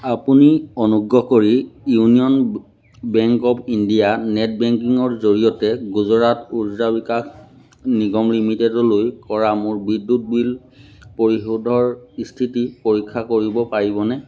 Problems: none marked